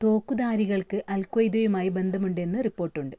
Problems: none marked